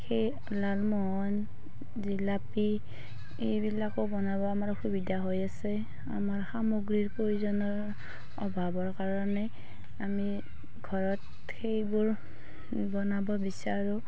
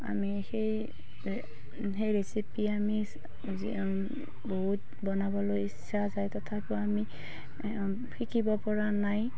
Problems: none marked